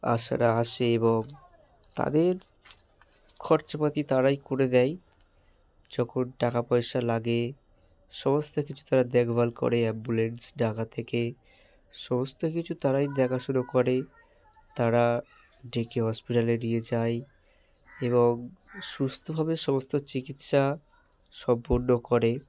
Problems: none marked